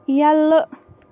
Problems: none marked